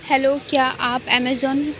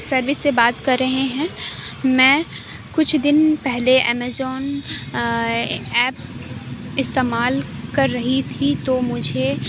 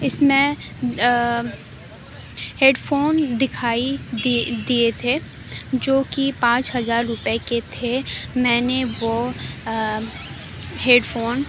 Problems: constant background noise